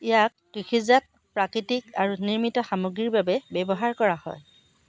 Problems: constant background noise, background conversations at intervals